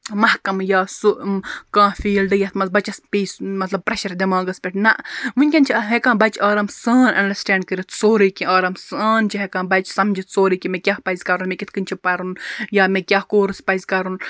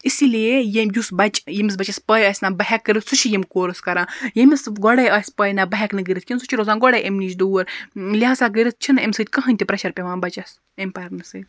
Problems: none marked